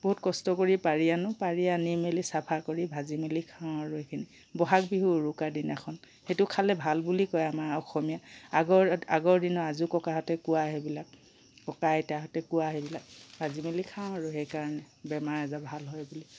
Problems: background sounds at intervals